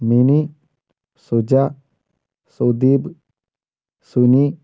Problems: none marked